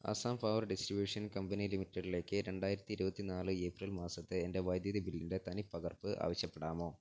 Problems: none marked